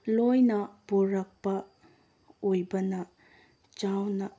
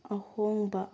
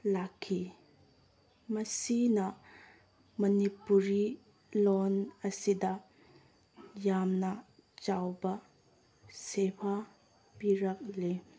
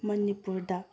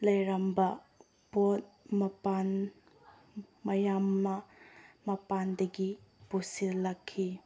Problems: background sounds at intervals